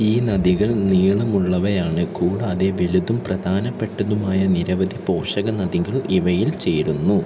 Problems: constant background noise